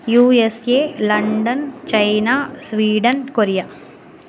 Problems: none marked